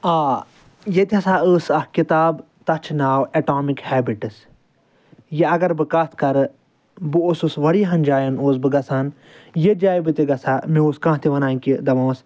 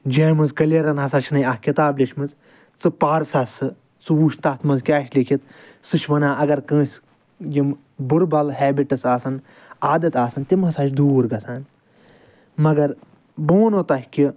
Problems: none marked